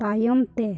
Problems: low volume